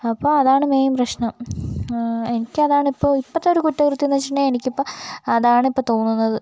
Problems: none marked